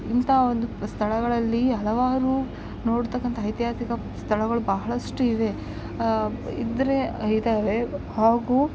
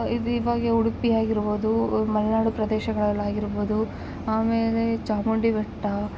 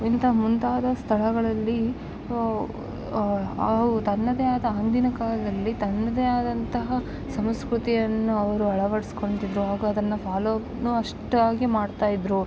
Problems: background sounds at intervals